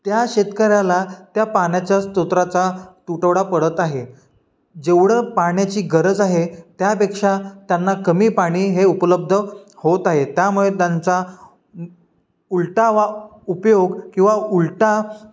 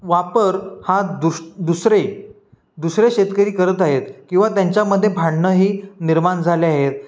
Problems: background sounds at intervals